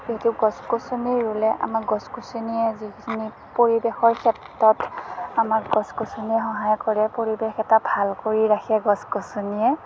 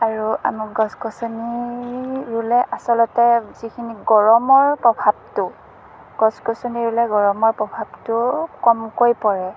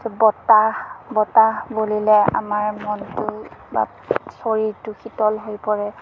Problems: constant background noise